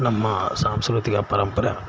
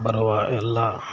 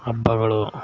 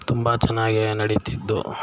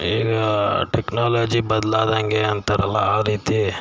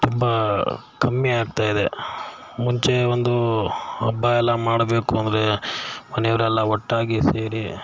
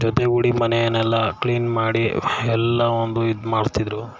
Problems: background sounds at intervals